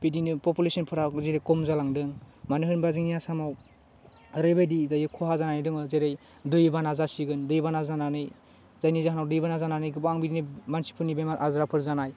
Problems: constant background noise